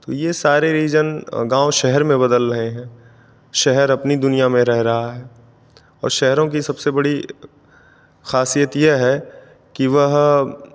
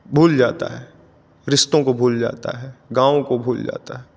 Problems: none marked